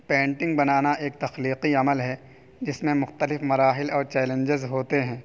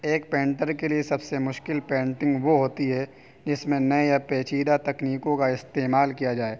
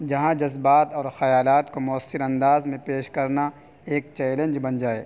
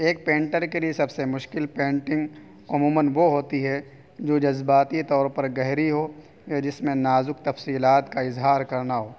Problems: constant background noise